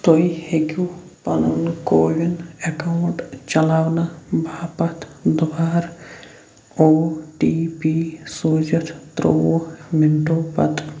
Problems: constant background noise